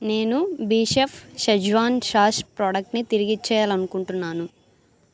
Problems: none marked